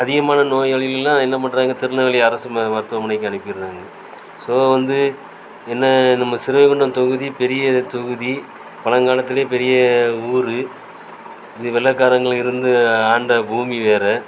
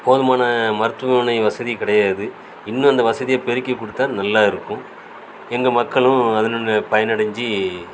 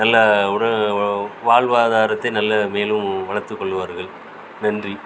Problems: constant background noise